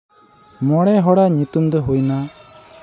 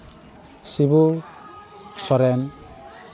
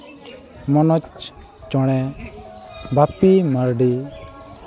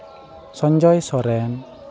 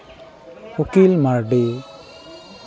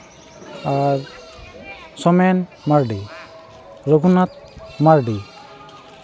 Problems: constant background noise, continuous background conversations